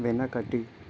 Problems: constant background noise